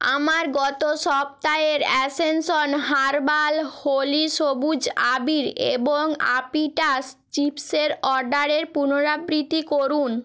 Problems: none marked